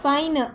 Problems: none marked